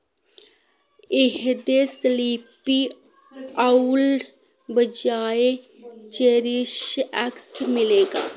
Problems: background sounds at intervals